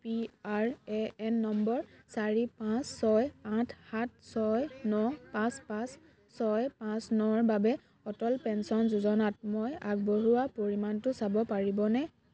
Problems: continuous background conversations